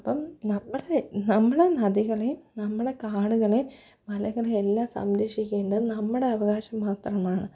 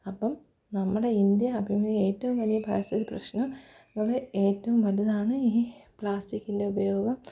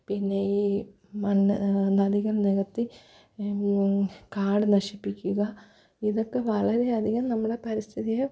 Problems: none marked